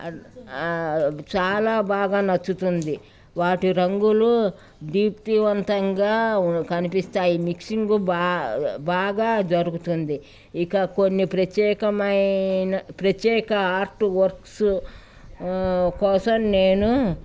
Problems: none marked